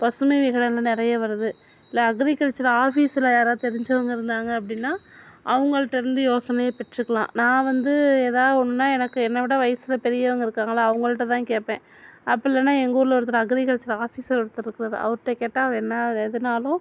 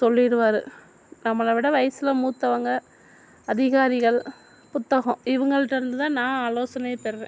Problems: background sounds at intervals